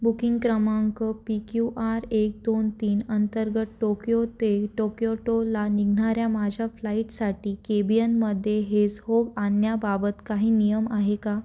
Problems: none marked